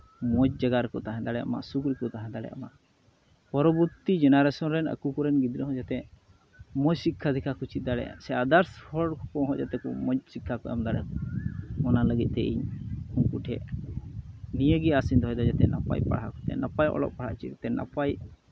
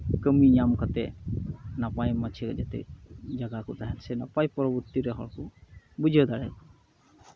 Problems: constant background noise